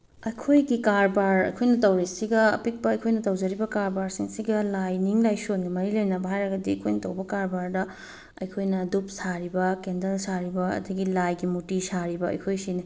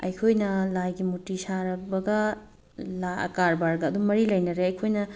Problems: background sounds at intervals